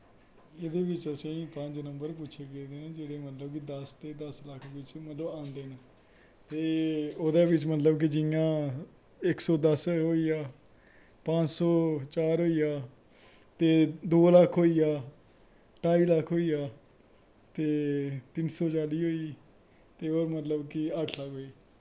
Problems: background sounds at intervals